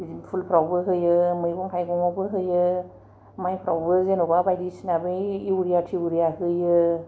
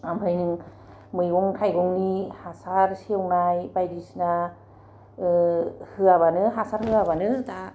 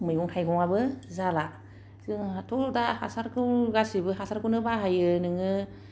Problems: none marked